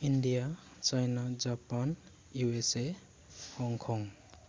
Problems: low volume